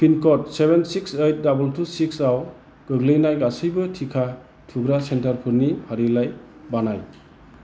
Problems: constant background noise